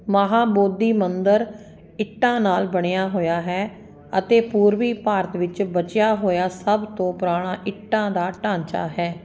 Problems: constant background noise